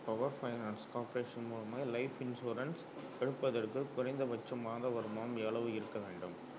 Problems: background sounds at intervals, low volume